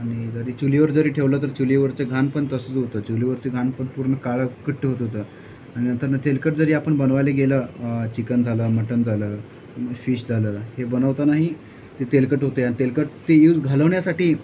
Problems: none marked